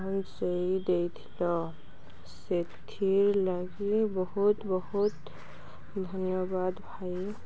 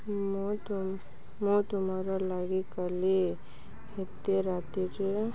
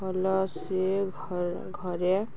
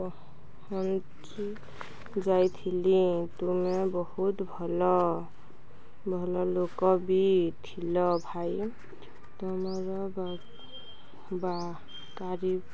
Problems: constant background noise